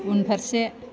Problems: constant background noise